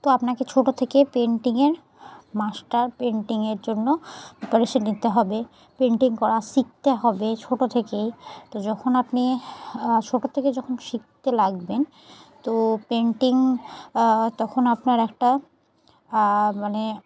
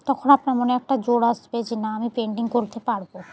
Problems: constant background noise